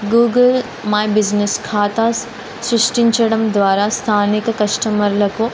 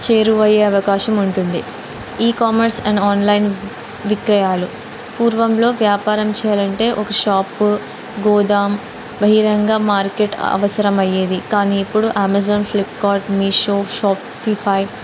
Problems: constant background noise